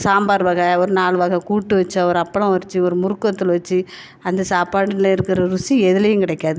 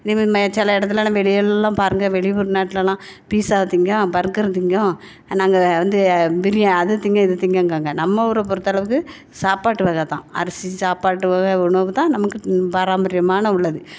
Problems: none marked